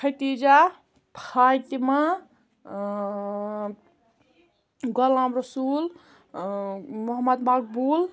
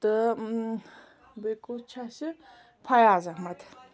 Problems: background sounds at intervals